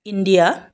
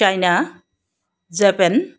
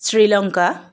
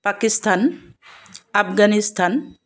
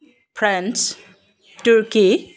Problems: constant background noise